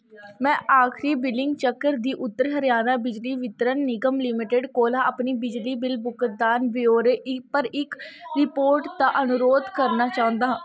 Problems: constant background noise